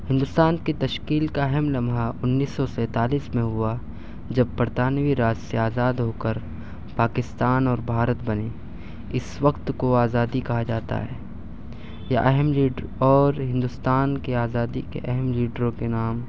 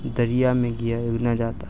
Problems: none marked